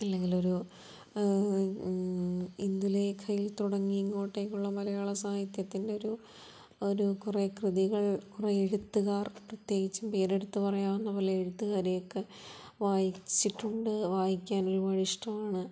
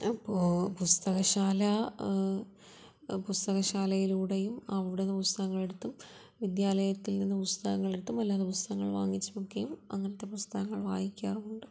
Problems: low volume